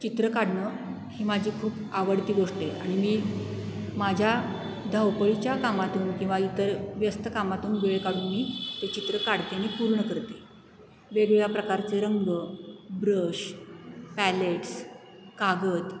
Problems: constant background noise